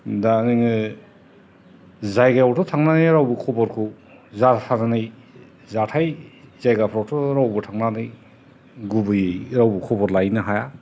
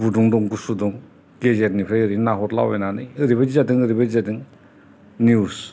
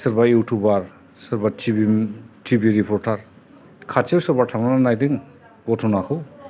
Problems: constant background noise, background conversations at intervals